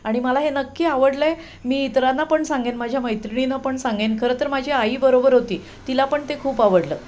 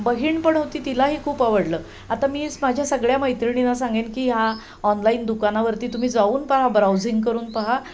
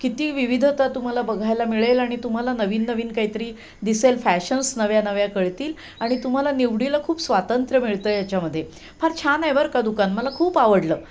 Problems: background sounds at intervals